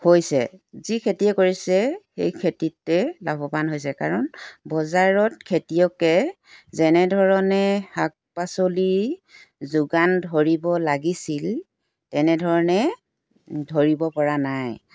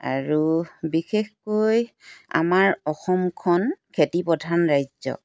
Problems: background sounds at intervals